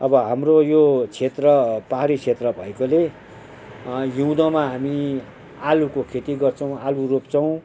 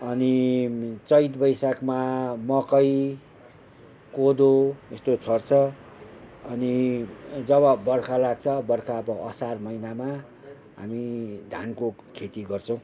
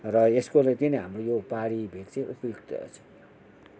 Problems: none marked